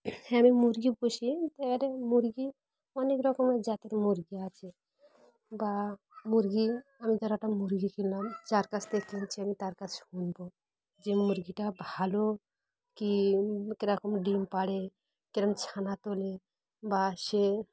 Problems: constant background noise, background conversations at intervals